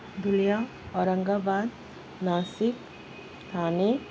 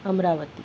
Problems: constant background noise, low volume